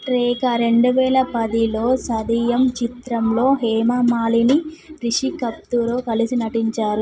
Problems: continuous background conversations